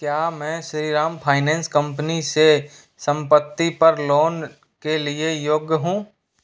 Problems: none marked